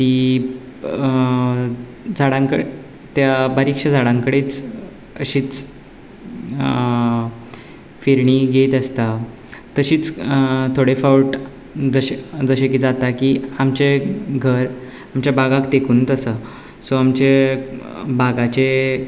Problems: background sounds at intervals